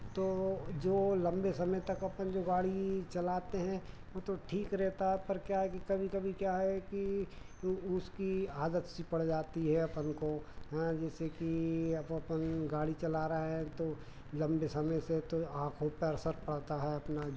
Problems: none marked